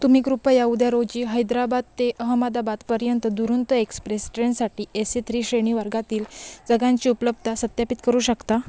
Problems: constant background noise, background conversations at intervals